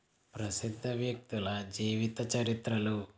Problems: low volume